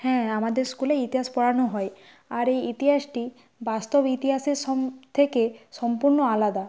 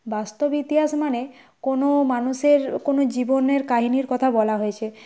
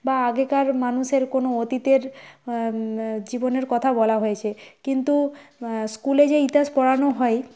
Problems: none marked